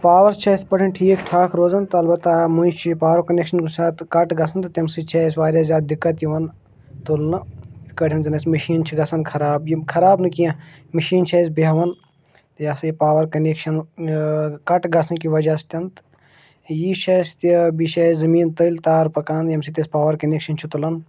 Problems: none marked